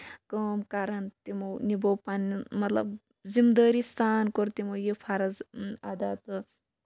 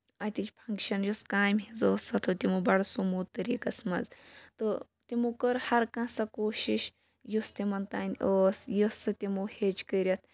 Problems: background sounds at intervals, background conversations at intervals